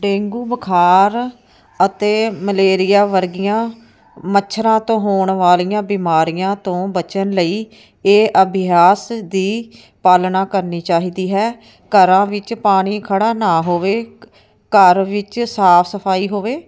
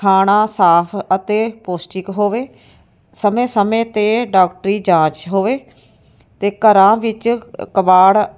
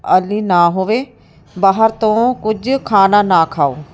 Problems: none marked